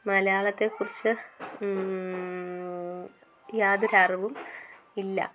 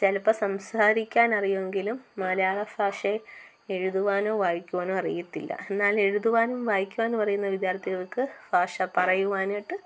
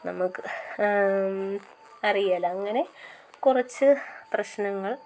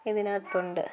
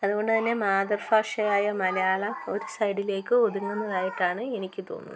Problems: low volume